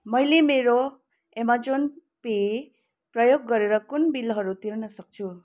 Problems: constant background noise